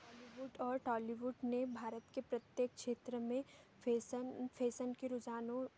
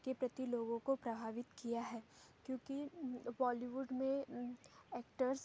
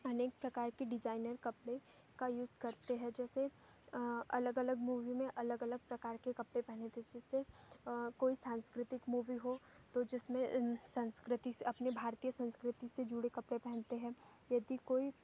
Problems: background sounds at intervals